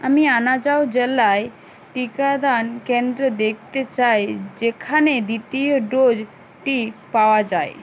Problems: none marked